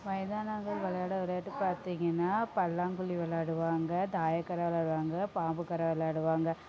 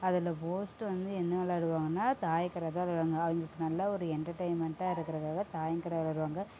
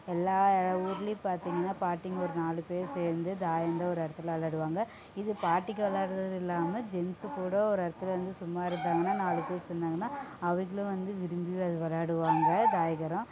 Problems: constant background noise, low volume